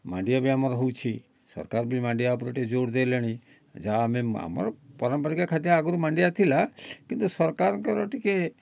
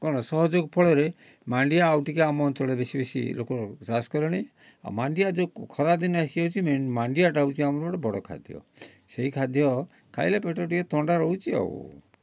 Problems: none marked